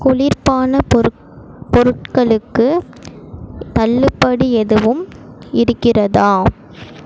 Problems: constant background noise